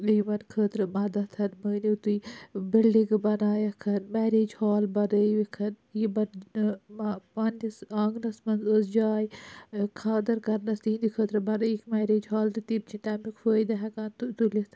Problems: none marked